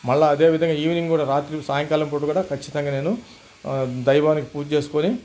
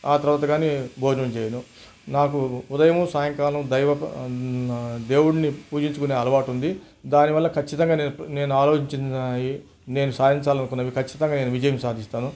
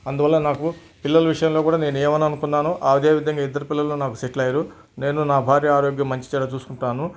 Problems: background sounds at intervals